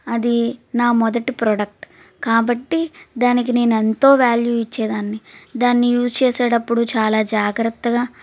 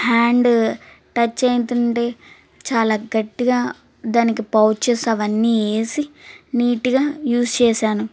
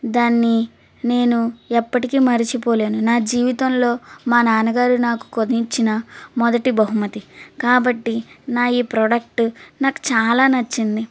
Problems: constant background noise